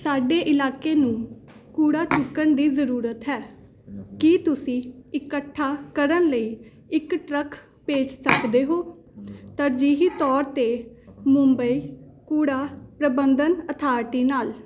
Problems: background conversations at intervals